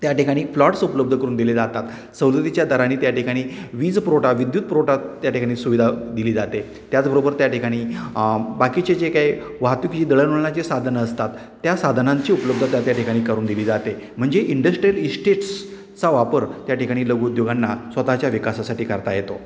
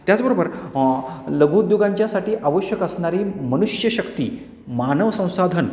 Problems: constant background noise, background conversations at intervals